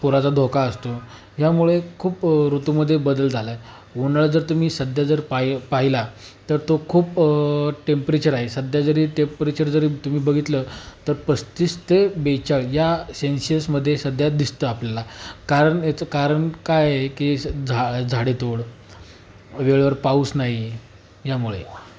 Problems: constant background noise